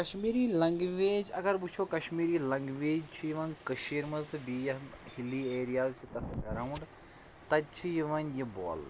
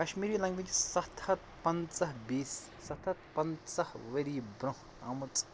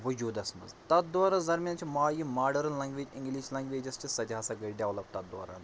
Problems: constant background noise, low volume